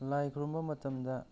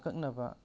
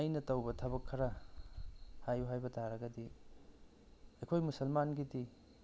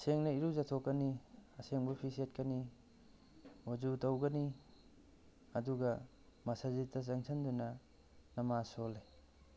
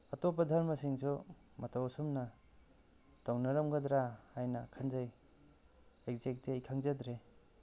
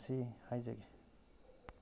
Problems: background sounds at intervals